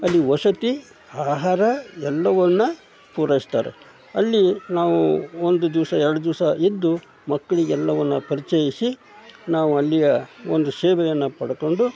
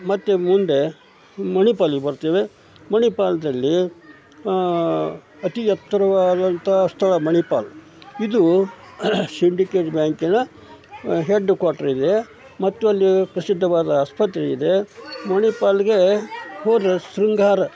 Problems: none marked